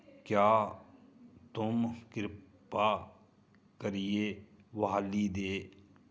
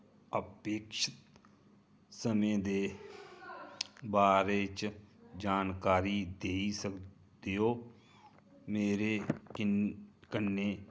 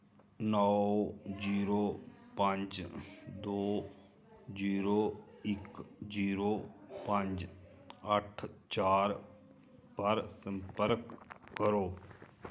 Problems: low volume